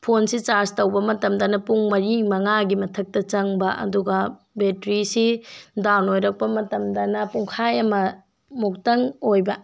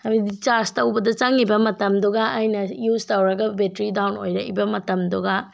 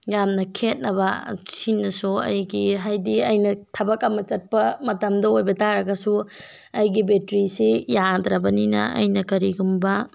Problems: none marked